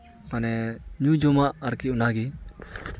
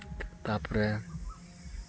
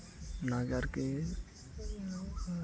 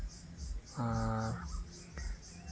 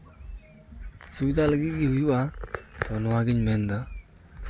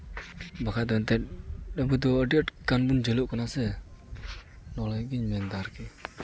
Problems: none marked